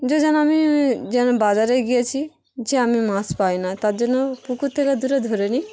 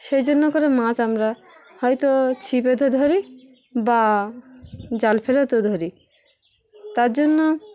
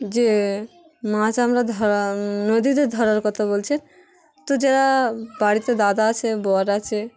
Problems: constant background noise, background conversations at intervals